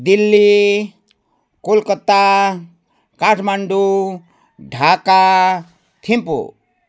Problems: background sounds at intervals